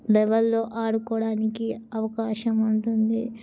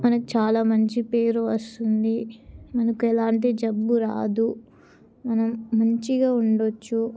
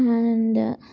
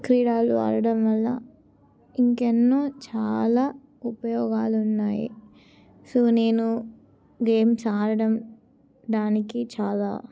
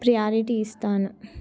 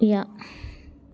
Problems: background sounds at intervals